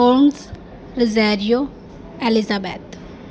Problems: constant background noise